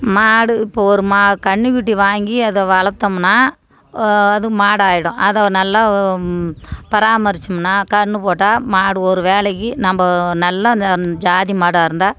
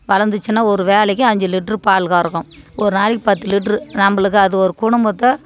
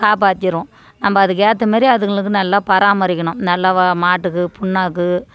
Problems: none marked